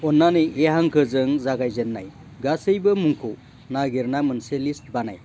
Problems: constant background noise